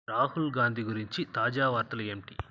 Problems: constant background noise